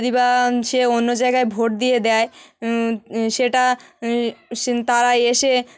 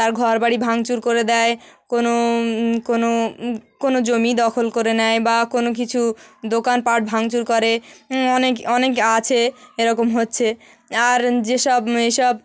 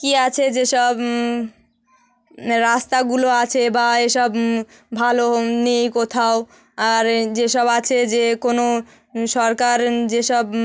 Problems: none marked